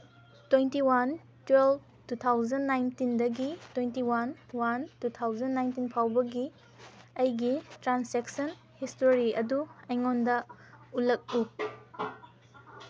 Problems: background sounds at intervals